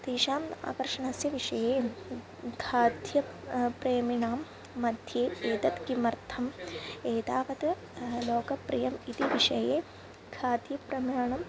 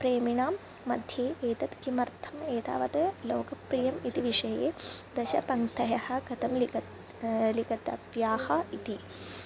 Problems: constant background noise